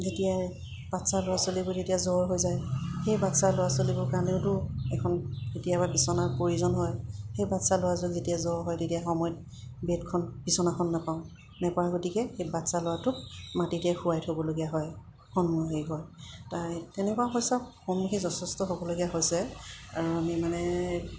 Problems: none marked